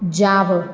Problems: none marked